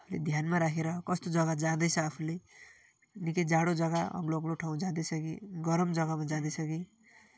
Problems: continuous background conversations